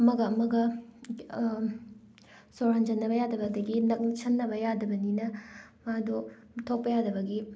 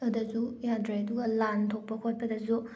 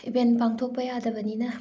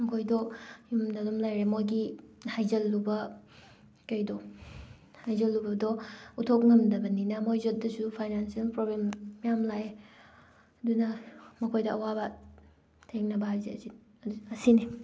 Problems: background sounds at intervals